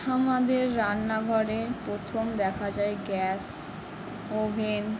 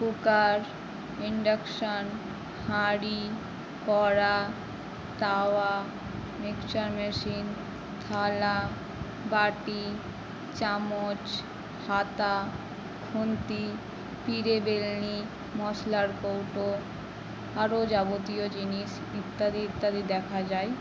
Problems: constant background noise